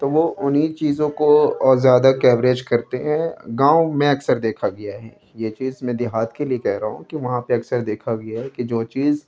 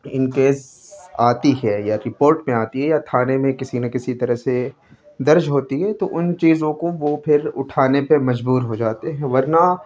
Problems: background sounds at intervals, background conversations at intervals